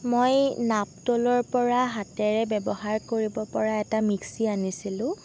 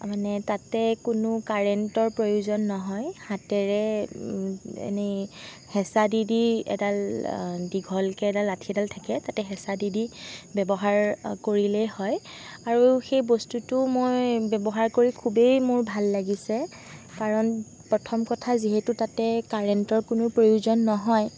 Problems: none marked